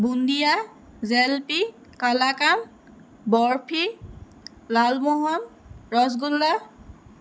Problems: constant background noise